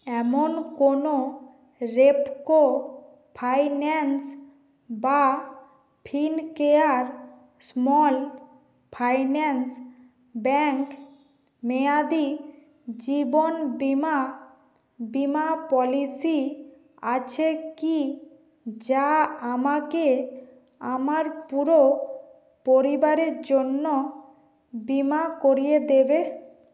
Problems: background sounds at intervals